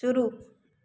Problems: constant background noise